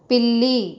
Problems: constant background noise